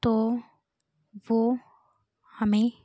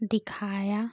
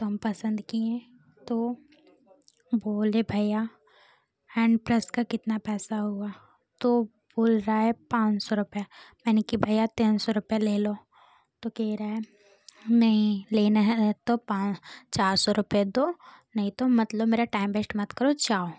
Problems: constant background noise